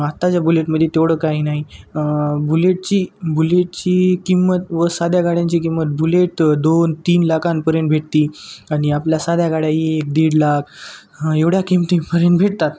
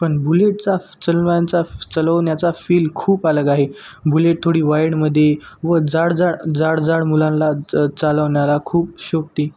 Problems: constant background noise